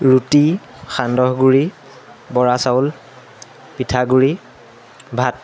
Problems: constant background noise